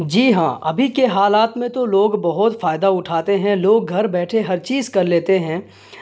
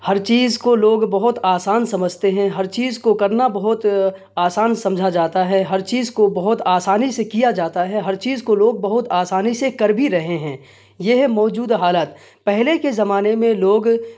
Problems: none marked